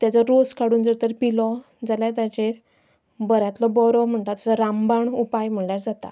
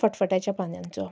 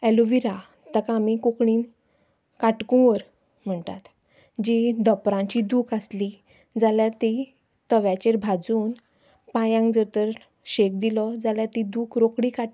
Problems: background sounds at intervals